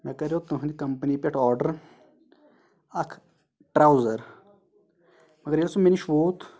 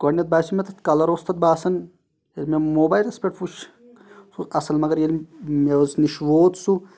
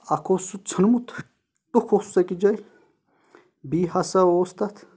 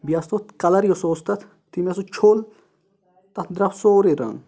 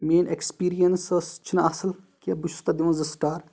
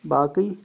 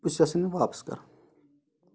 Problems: none marked